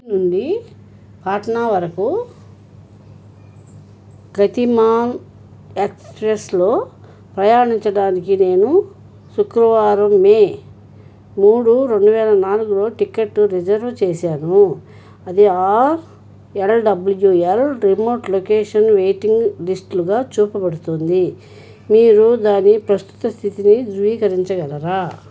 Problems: none marked